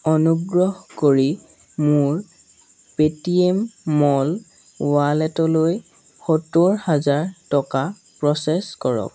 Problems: none marked